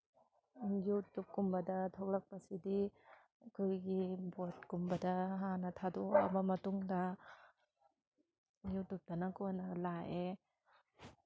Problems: background sounds at intervals, background conversations at intervals